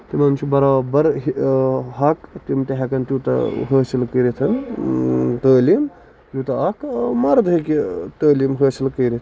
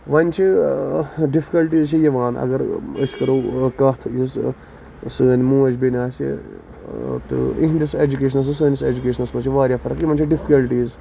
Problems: constant background noise, background conversations at intervals